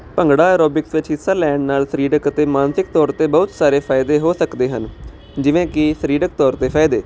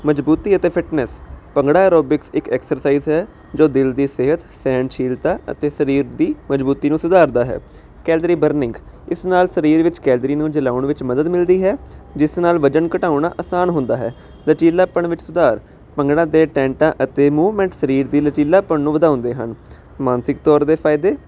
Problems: constant background noise